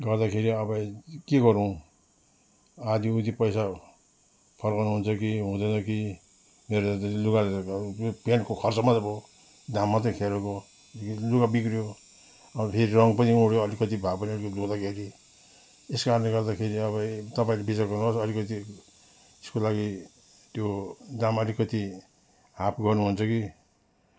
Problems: background sounds at intervals